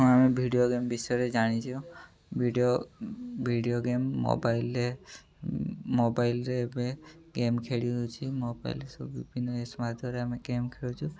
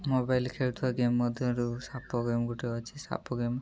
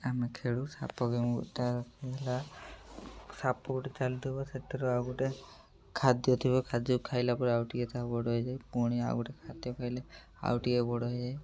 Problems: background sounds at intervals